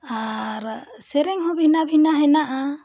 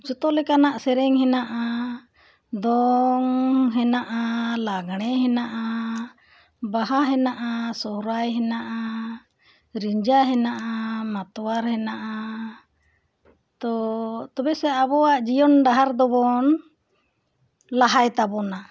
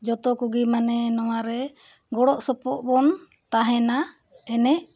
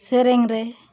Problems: background sounds at intervals